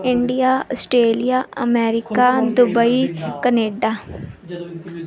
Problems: background conversations at intervals